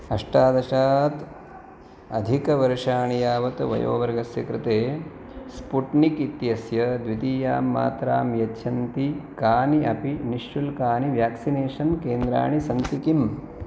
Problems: none marked